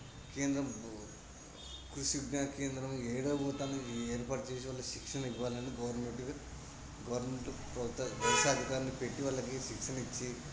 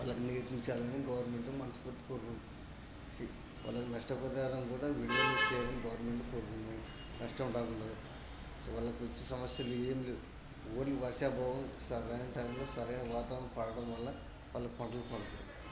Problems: constant background noise, low volume